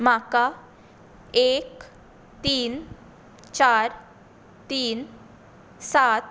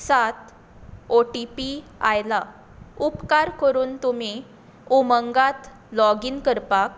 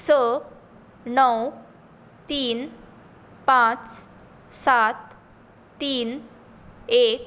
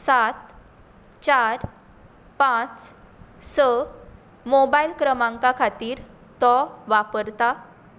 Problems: none marked